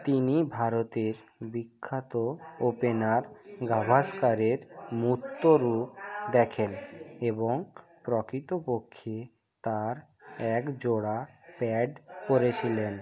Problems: background conversations at intervals